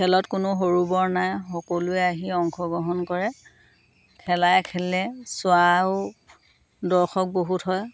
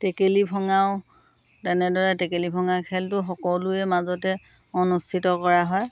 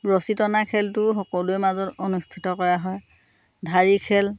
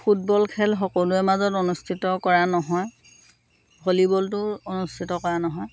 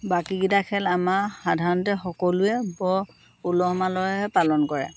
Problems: none marked